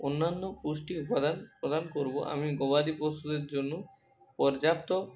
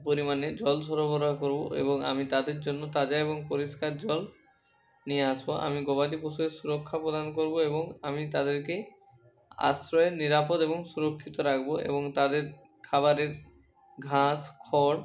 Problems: constant background noise